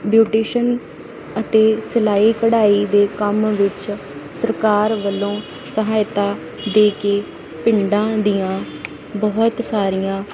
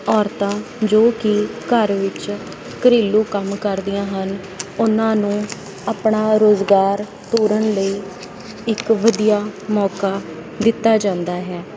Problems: none marked